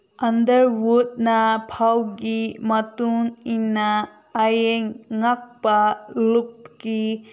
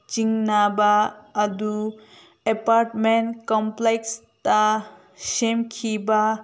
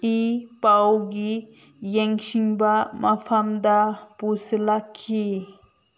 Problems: none marked